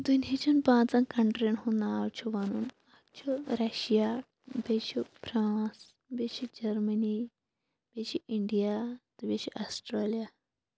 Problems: background sounds at intervals